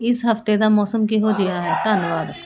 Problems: none marked